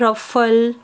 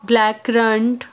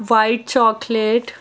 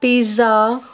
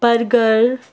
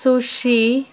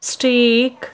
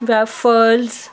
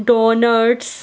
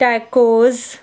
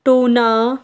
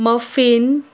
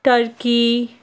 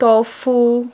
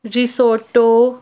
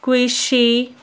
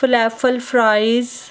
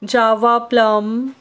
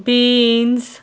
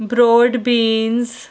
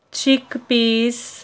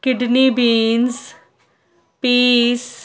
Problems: constant background noise